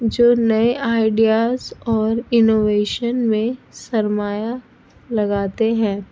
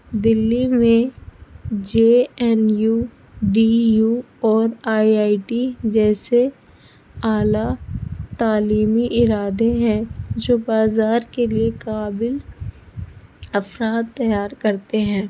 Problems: constant background noise, low volume